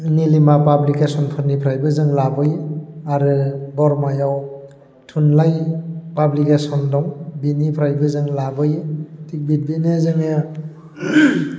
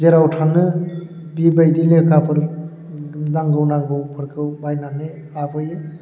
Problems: constant background noise